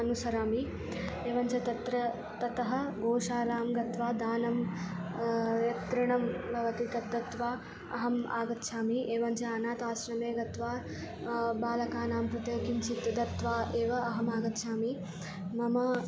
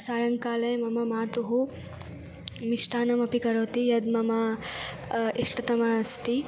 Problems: constant background noise